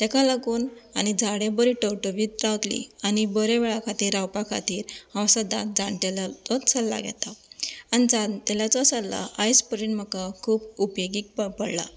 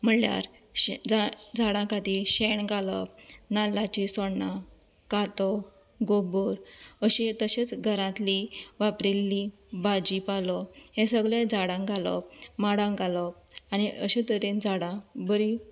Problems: constant background noise